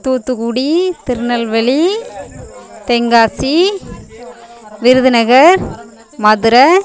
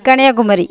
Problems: continuous background conversations